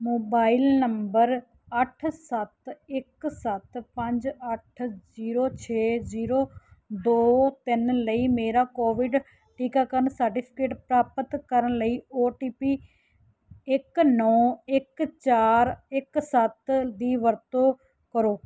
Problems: background sounds at intervals